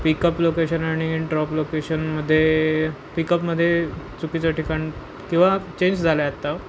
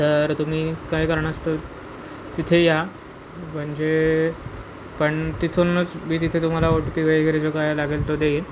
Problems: constant background noise